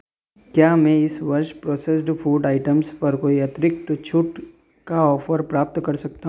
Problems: constant background noise